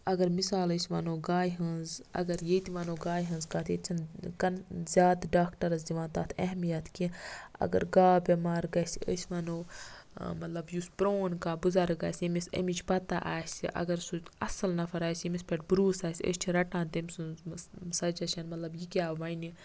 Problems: background conversations at intervals